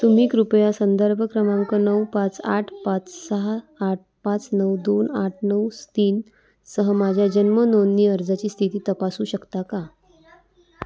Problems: background sounds at intervals, continuous background conversations